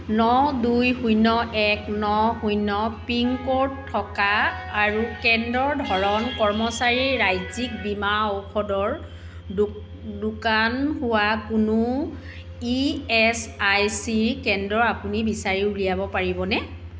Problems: constant background noise